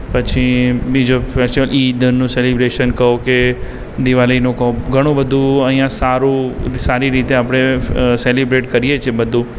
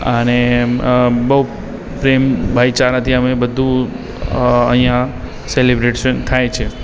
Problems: background sounds at intervals